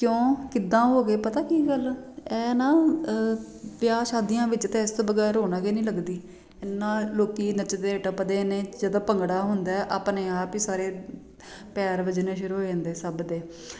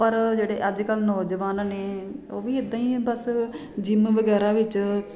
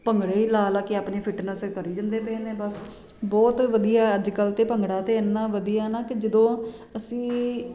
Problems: none marked